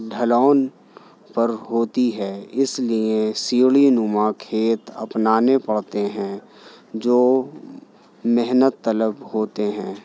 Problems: none marked